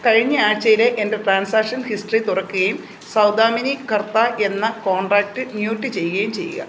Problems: constant background noise